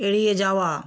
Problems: none marked